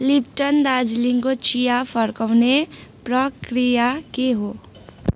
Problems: background sounds at intervals